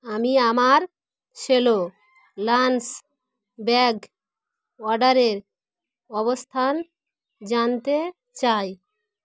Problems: none marked